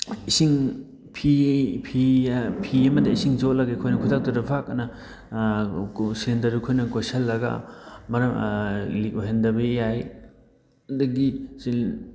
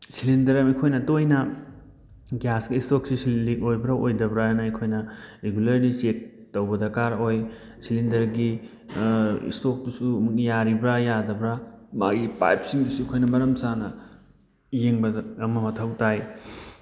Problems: none marked